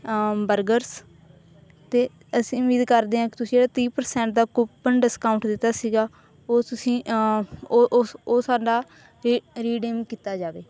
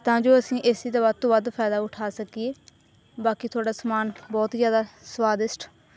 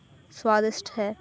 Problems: none marked